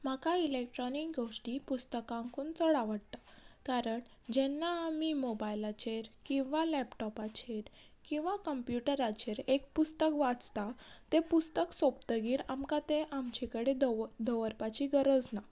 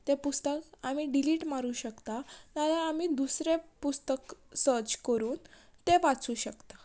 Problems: background sounds at intervals